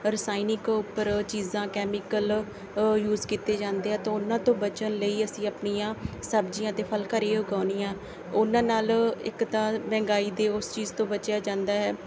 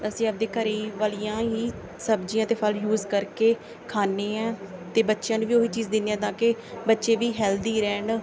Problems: background sounds at intervals, background conversations at intervals